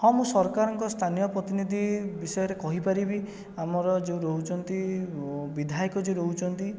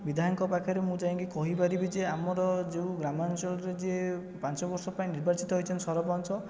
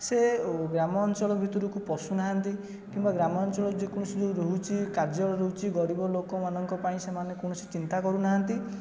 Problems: continuous background conversations